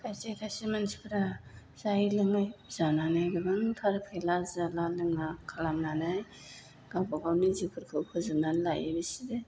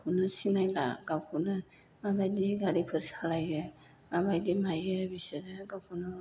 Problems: low volume